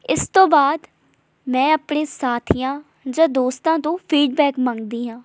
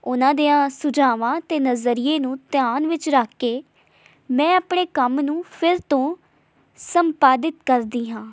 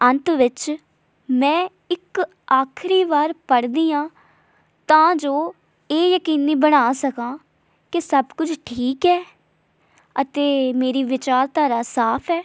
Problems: none marked